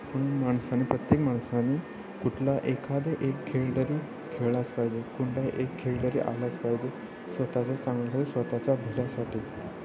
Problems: constant background noise, continuous background conversations